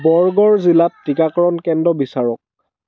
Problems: background sounds at intervals